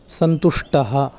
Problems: background sounds at intervals